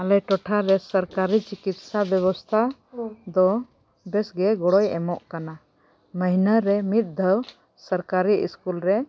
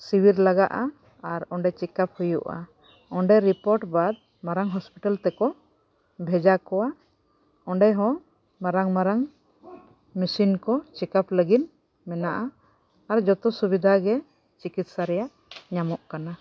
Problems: background sounds at intervals